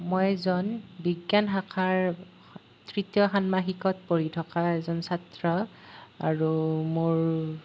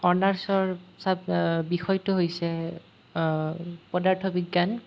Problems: none marked